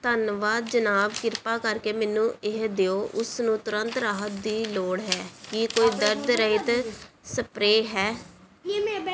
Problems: background conversations at intervals